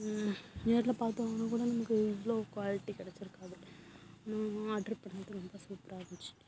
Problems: constant background noise